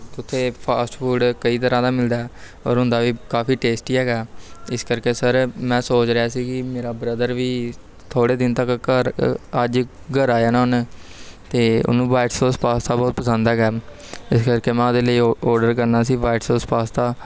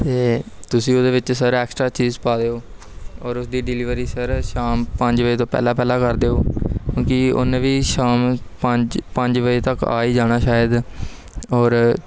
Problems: background sounds at intervals